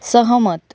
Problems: none marked